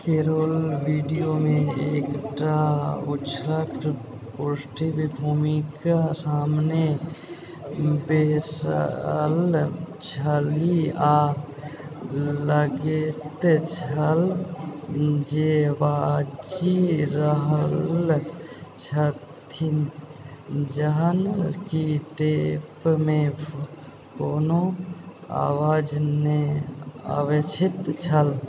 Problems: constant background noise, background conversations at intervals